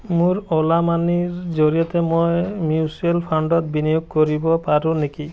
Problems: background conversations at intervals